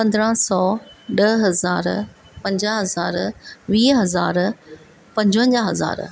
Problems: none marked